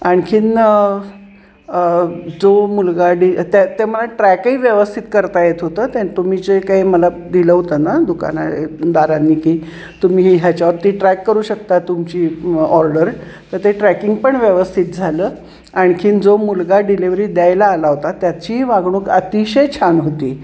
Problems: none marked